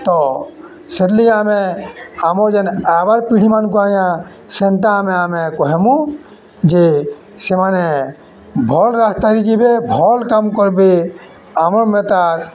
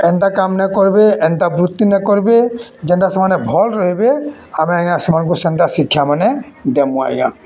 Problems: background sounds at intervals, background conversations at intervals